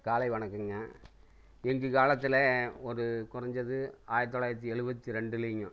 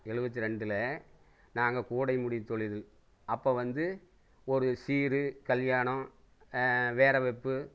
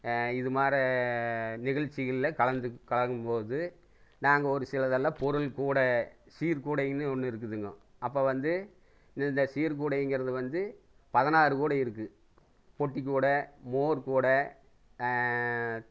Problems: none marked